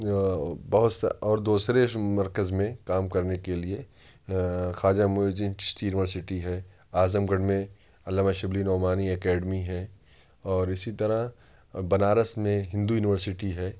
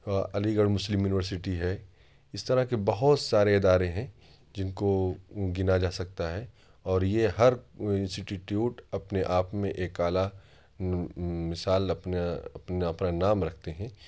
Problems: none marked